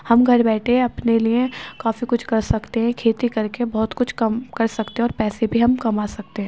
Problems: constant background noise